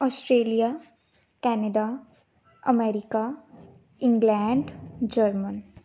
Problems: background sounds at intervals